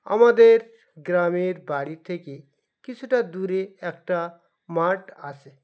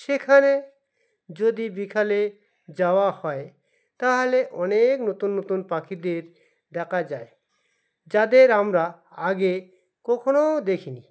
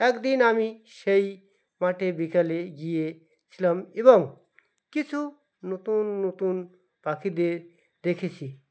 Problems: background sounds at intervals, background conversations at intervals